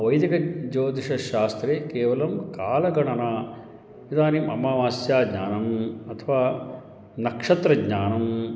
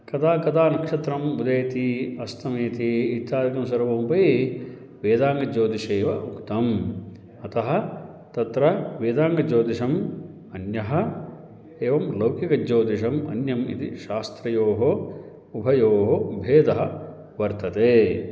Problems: background sounds at intervals, background conversations at intervals